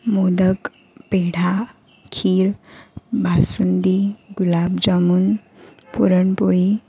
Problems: none marked